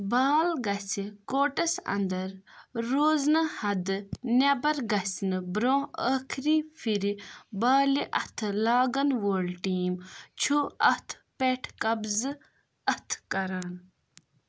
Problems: none marked